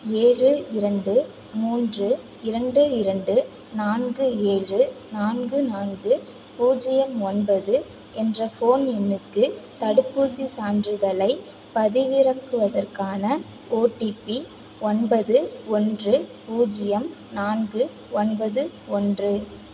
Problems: constant background noise